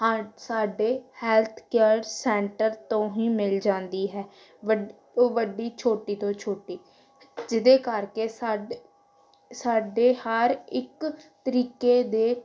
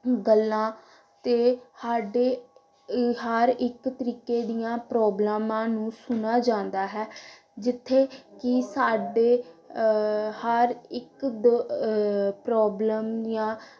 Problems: background conversations at intervals